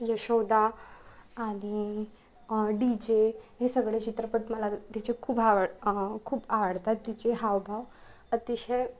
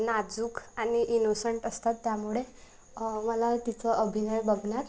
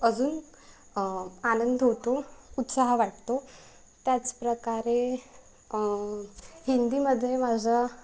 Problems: background sounds at intervals